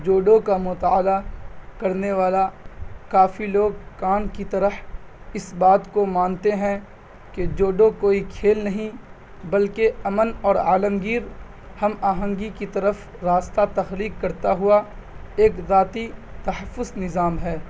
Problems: none marked